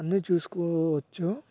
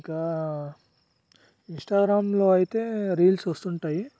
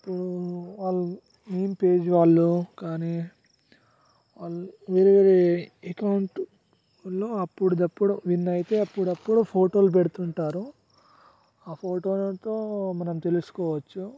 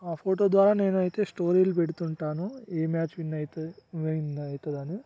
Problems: background sounds at intervals, low volume